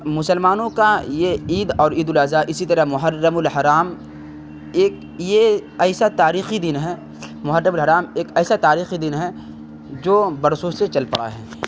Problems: constant background noise